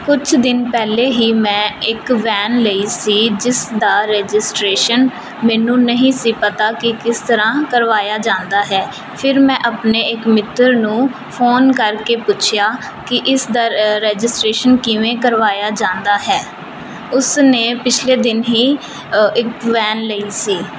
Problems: constant background noise